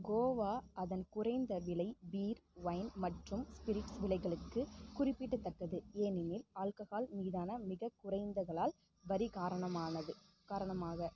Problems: constant background noise